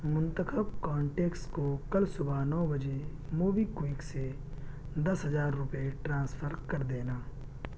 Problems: low volume